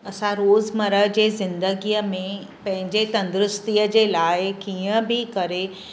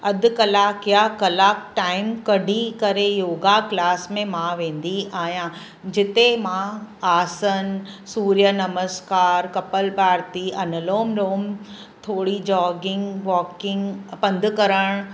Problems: constant background noise